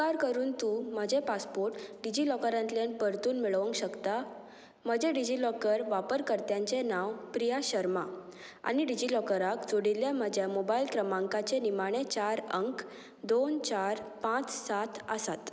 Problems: none marked